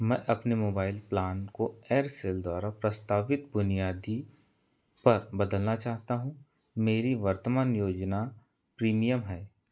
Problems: none marked